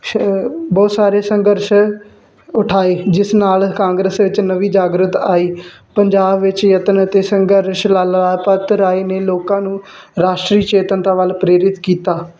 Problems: constant background noise